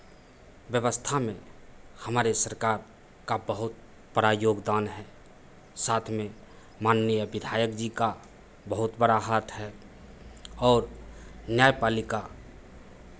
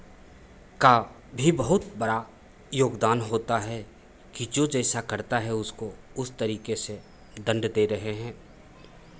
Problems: constant background noise, echo